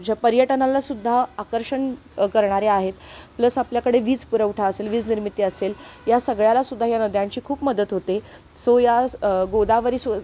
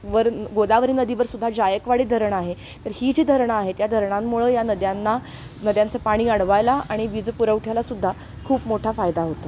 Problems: background sounds at intervals